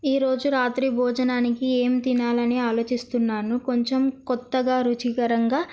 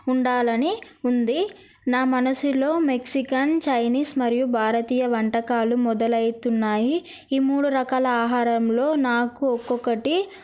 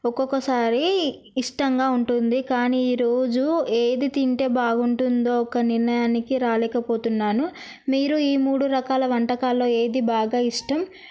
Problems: none marked